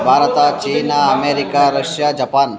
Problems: continuous background conversations